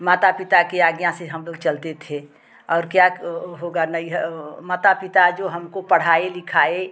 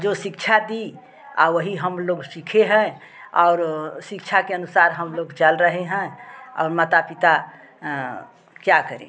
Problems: constant background noise, background conversations at intervals